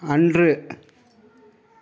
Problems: none marked